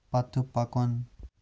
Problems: low volume